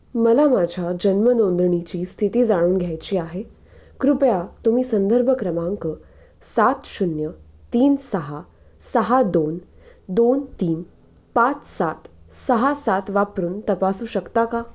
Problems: constant background noise